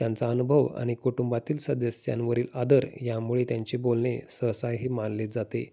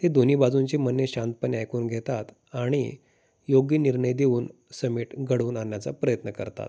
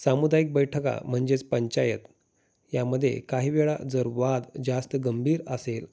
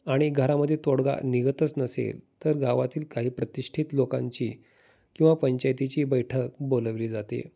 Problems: constant background noise